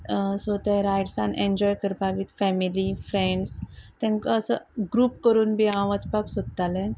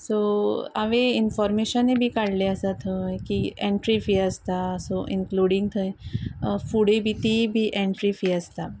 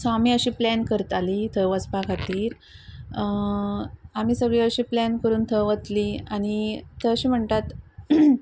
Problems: constant background noise